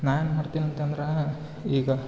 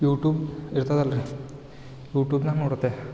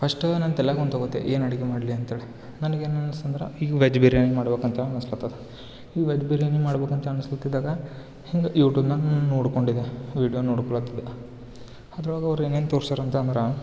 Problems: none marked